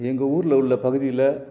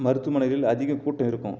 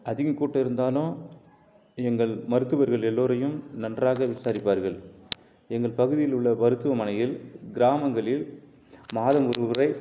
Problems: none marked